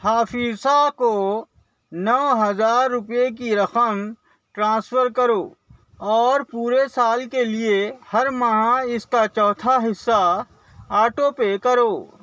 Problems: constant background noise